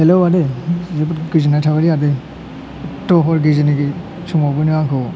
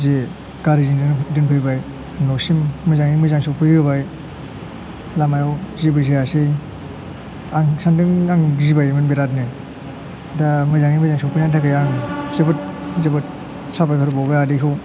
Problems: constant background noise